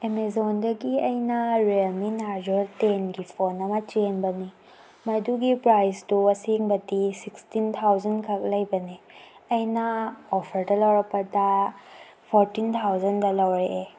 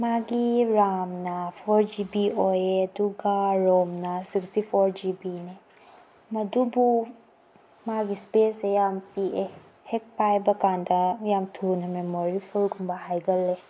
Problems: none marked